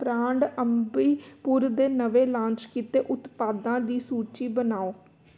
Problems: none marked